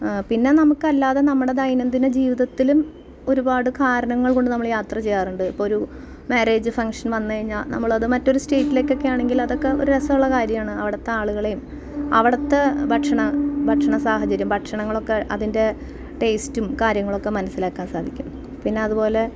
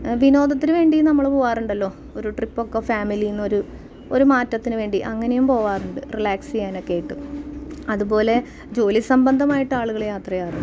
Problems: background sounds at intervals